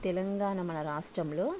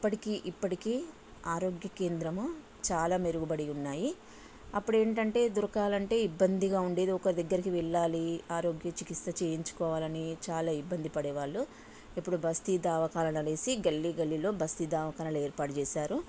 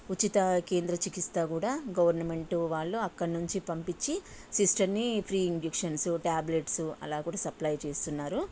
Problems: constant background noise